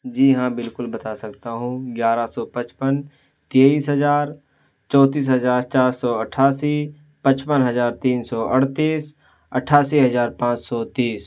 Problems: constant background noise